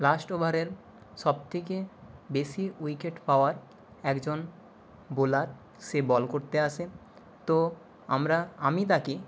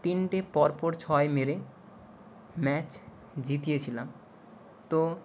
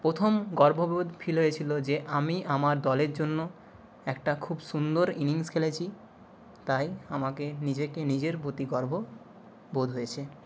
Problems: none marked